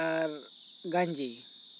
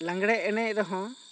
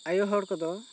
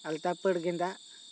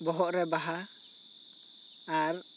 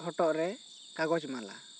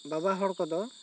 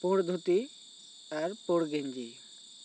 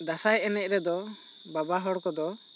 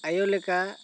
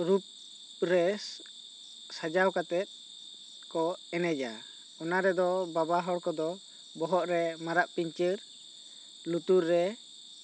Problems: none marked